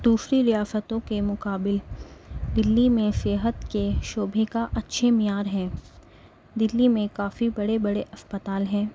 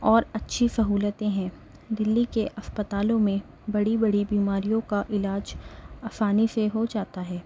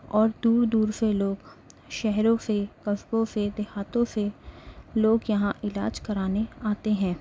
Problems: constant background noise